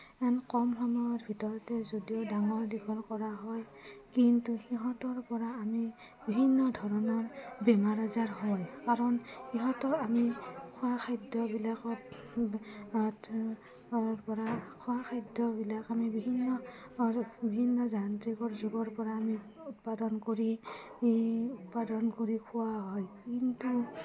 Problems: low volume